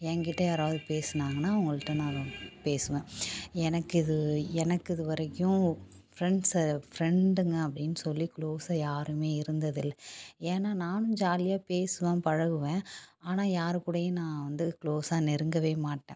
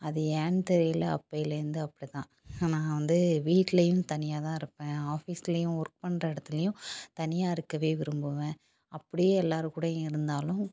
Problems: background sounds at intervals